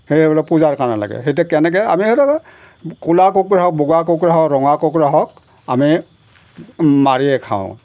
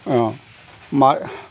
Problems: background sounds at intervals